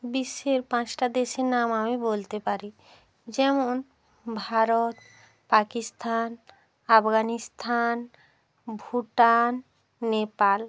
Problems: none marked